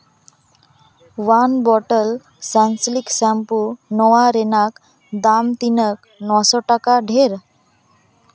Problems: none marked